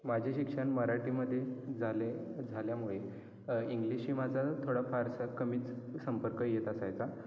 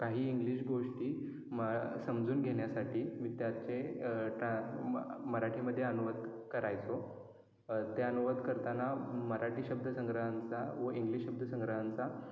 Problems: none marked